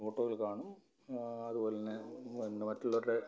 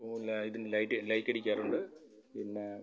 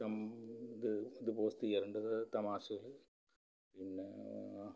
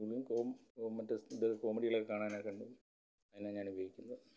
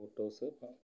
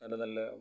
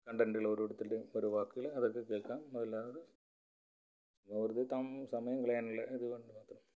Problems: low volume